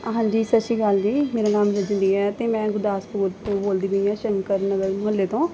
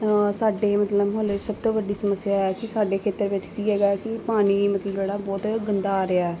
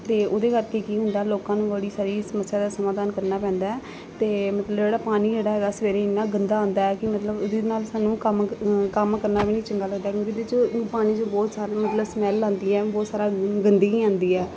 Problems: background sounds at intervals